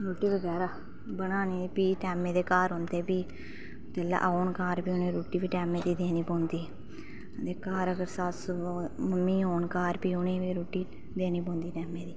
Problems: none marked